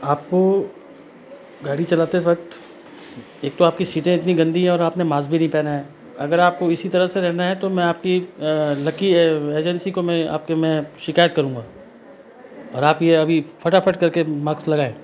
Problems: constant background noise, background conversations at intervals